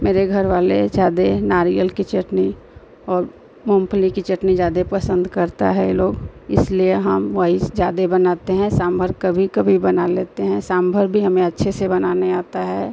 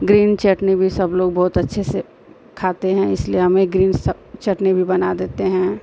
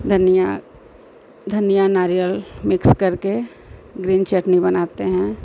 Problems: constant background noise